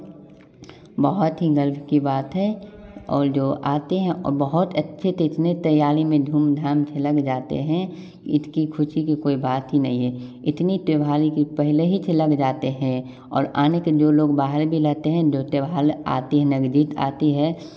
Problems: constant background noise, continuous background conversations